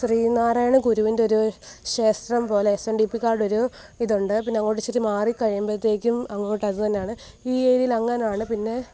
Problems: none marked